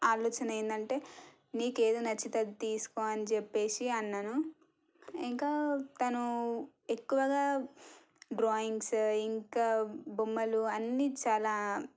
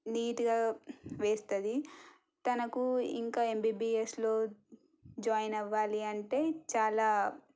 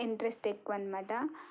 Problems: low volume